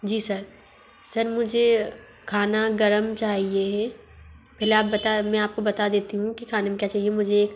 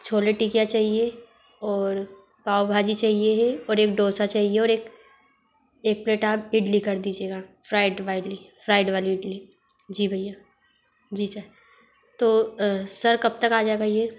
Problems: none marked